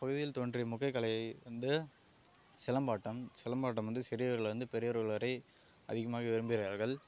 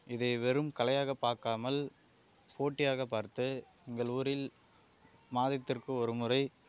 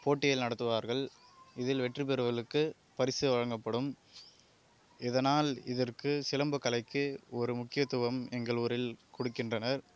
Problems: constant background noise